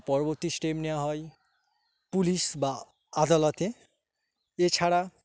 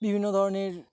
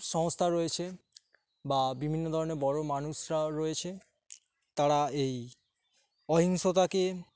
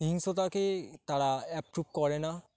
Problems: constant background noise